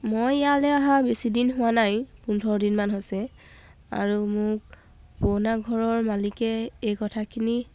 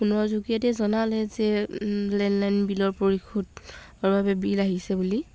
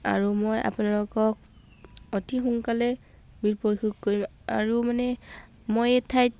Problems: background sounds at intervals